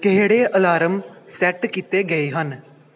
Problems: background sounds at intervals